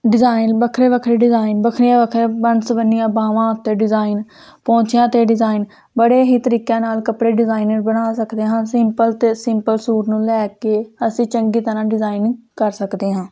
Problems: constant background noise